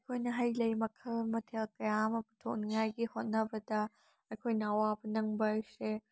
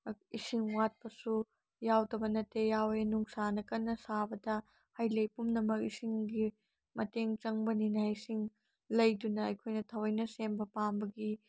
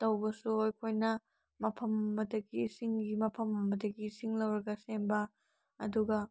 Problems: none marked